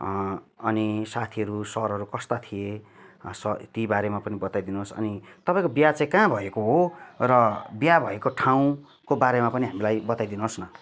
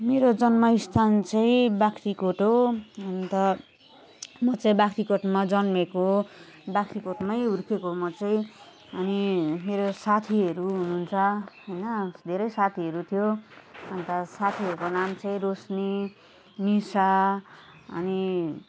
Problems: none marked